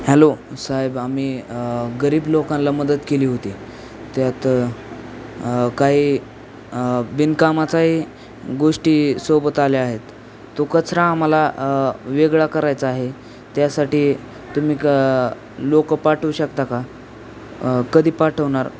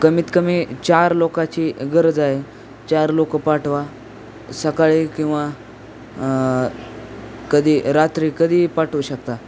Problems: none marked